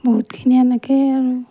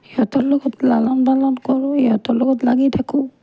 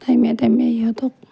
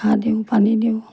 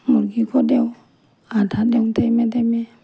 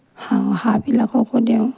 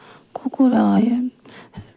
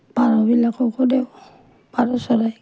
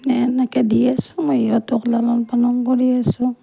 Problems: none marked